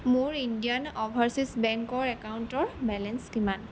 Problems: background sounds at intervals